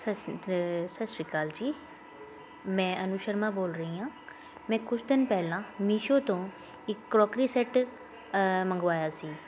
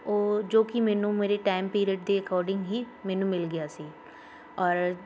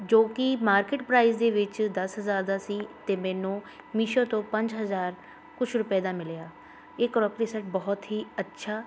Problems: constant background noise, continuous background conversations